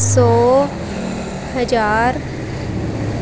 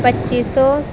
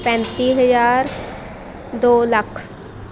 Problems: none marked